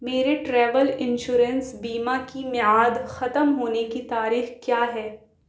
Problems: none marked